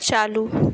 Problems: none marked